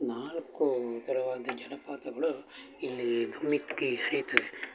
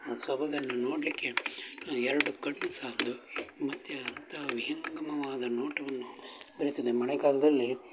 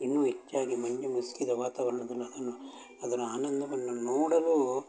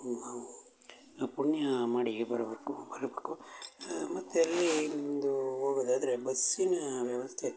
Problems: constant background noise